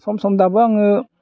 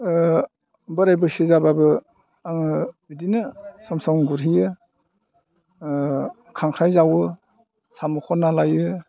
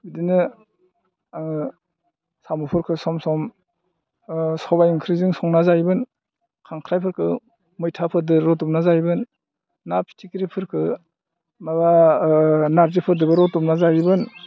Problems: low volume